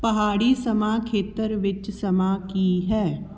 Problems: background conversations at intervals